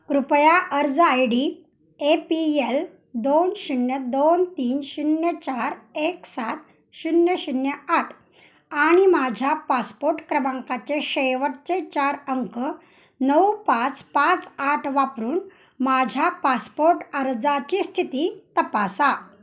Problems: none marked